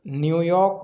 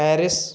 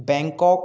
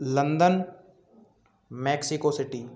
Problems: continuous background conversations